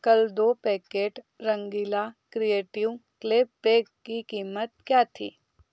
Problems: background sounds at intervals